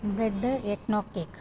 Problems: low volume